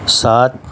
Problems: constant background noise